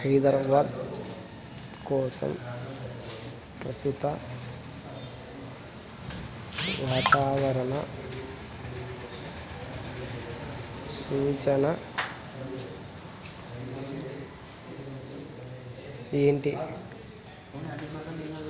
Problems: none marked